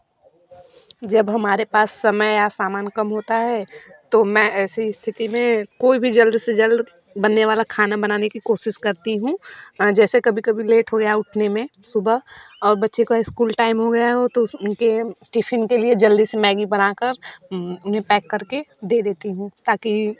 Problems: background sounds at intervals, background conversations at intervals